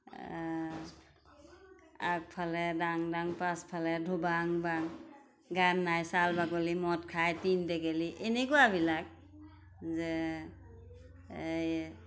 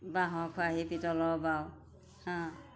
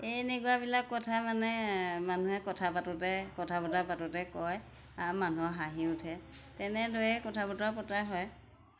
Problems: constant background noise